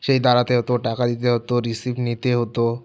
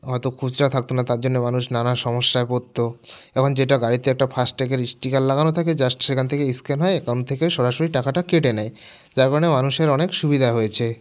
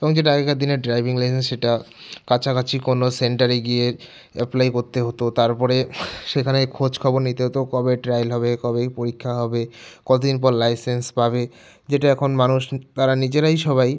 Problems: background sounds at intervals